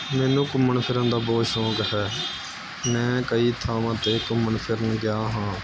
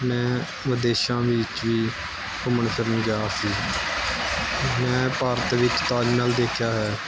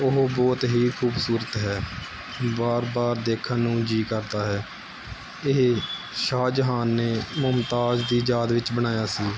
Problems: constant background noise